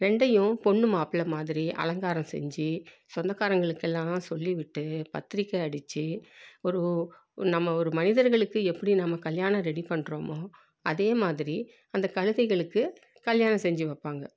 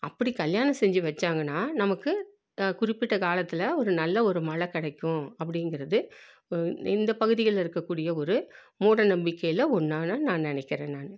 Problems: low volume